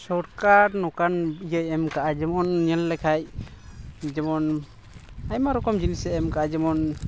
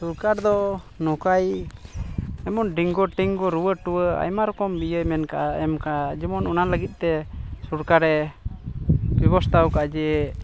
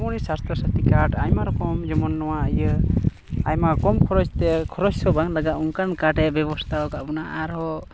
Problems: constant background noise